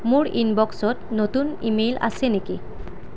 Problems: none marked